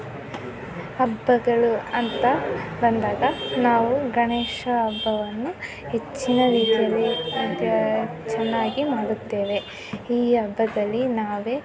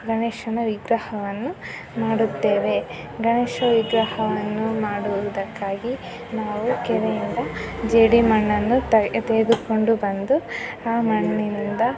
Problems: constant background noise, continuous background conversations